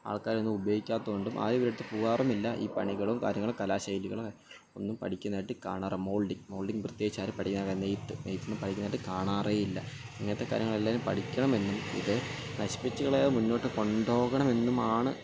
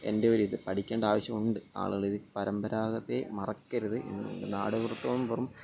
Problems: background sounds at intervals, low volume